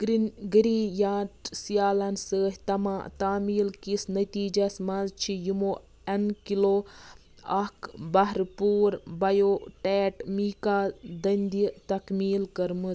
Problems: background sounds at intervals